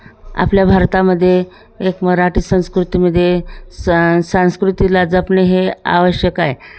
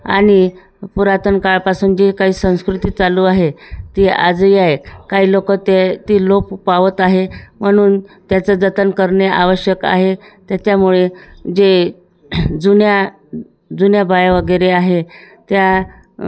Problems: constant background noise, continuous background conversations